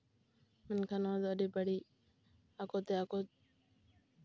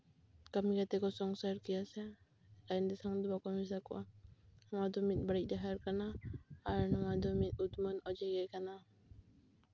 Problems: background sounds at intervals